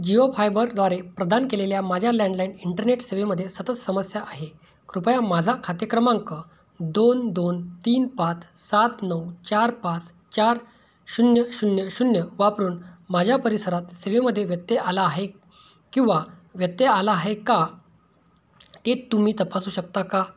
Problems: none marked